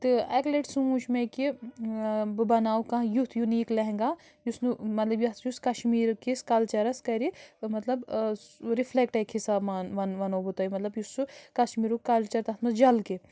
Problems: background sounds at intervals